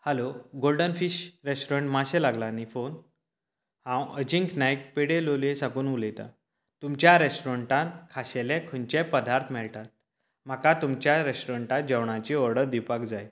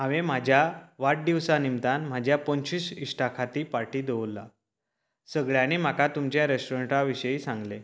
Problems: none marked